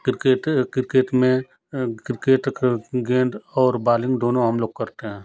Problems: none marked